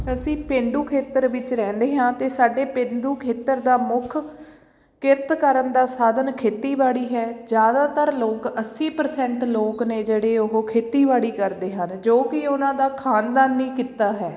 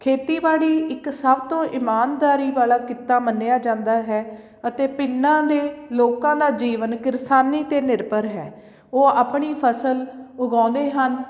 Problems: background sounds at intervals